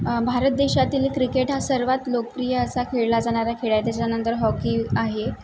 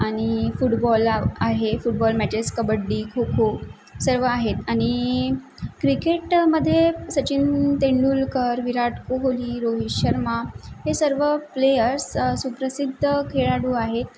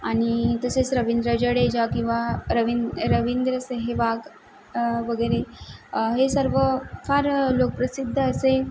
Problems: background sounds at intervals